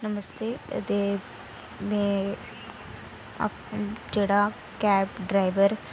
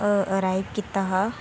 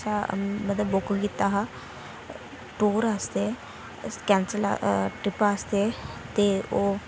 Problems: constant background noise